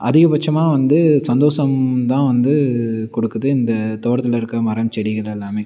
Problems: none marked